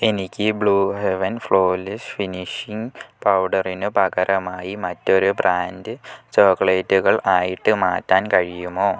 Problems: low volume